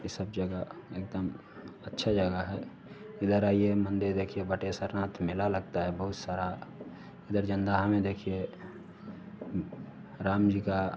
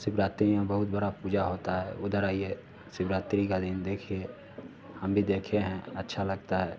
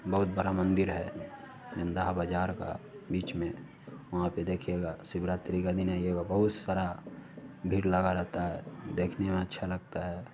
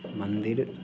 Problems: none marked